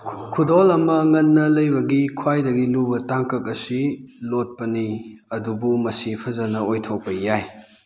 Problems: background sounds at intervals